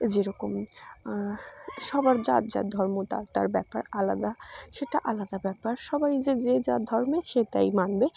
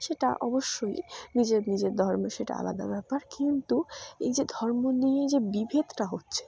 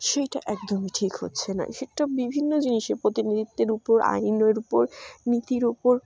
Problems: none marked